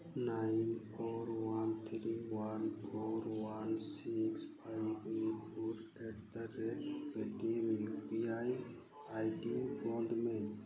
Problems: none marked